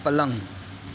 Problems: constant background noise